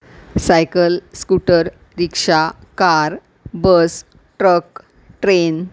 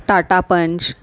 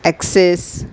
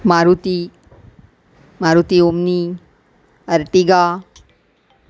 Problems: background sounds at intervals